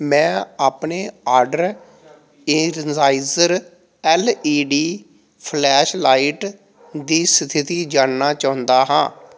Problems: background sounds at intervals